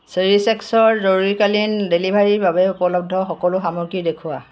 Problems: none marked